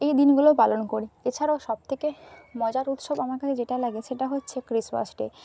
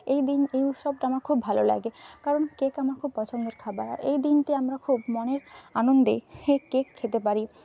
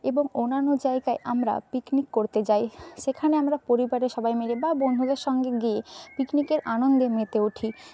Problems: constant background noise